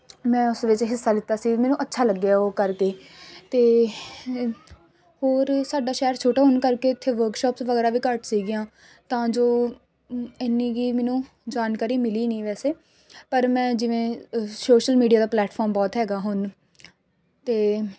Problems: none marked